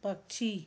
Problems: low volume